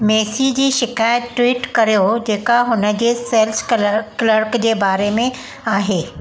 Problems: constant background noise, echo